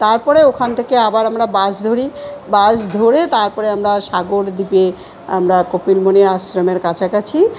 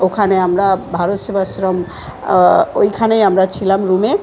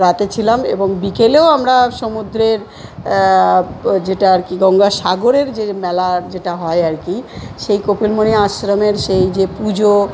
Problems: continuous background conversations